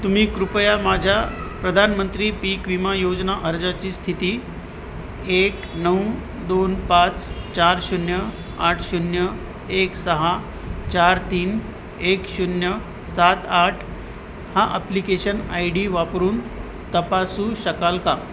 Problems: constant background noise, background conversations at intervals